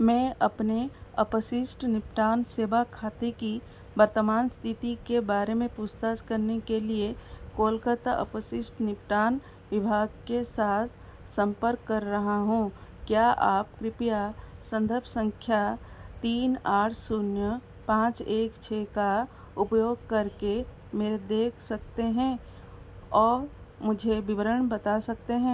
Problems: constant background noise